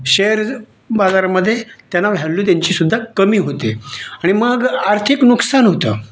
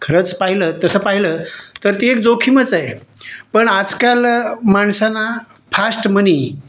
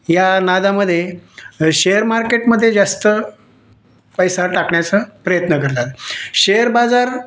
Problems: none marked